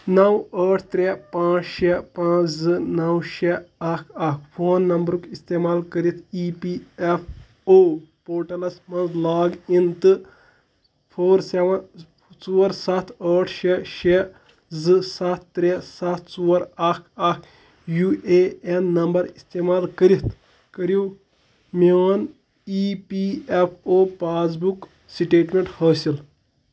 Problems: none marked